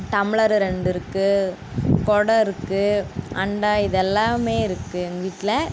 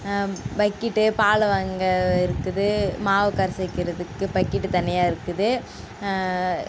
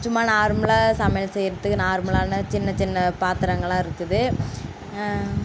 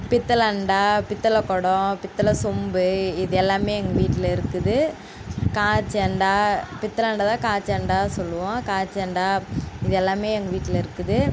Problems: constant background noise